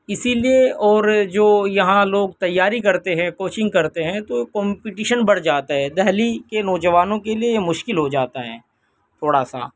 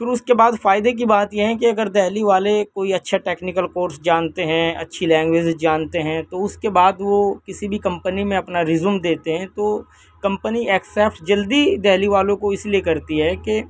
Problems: background sounds at intervals, background conversations at intervals